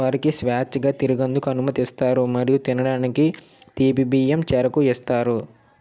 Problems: none marked